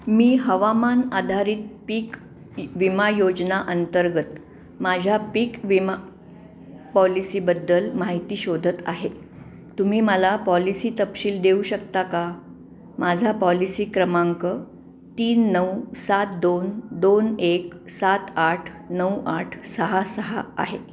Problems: background sounds at intervals